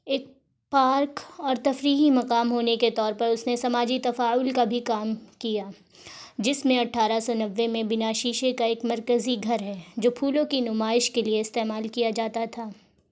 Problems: none marked